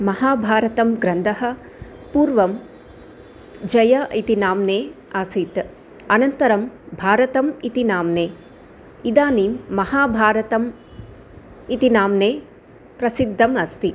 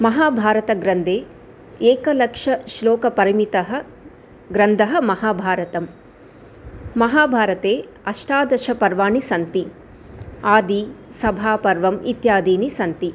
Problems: none marked